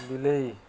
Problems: background sounds at intervals